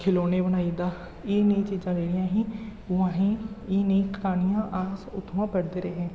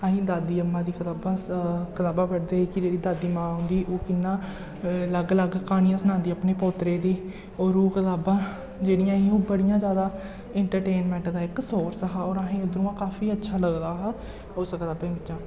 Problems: low volume